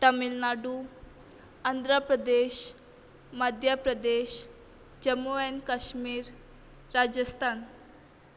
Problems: constant background noise